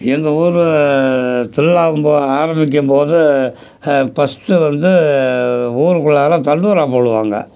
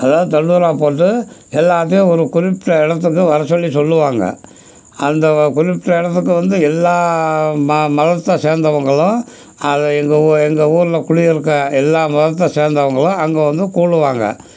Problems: background sounds at intervals